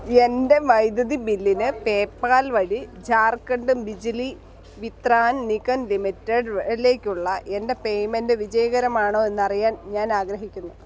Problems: background sounds at intervals